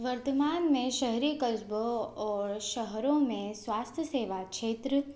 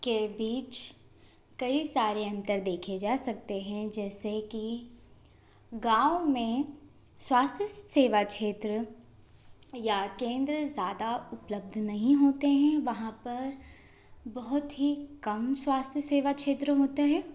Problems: constant background noise